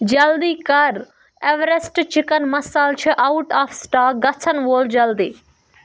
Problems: background sounds at intervals